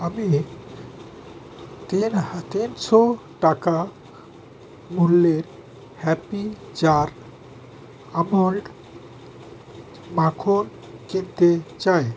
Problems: constant background noise